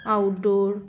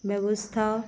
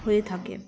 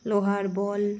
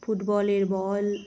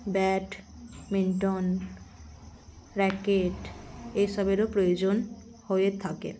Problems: none marked